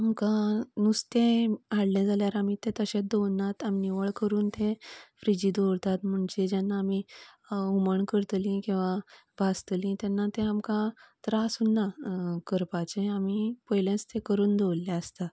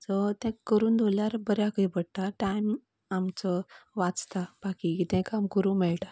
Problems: none marked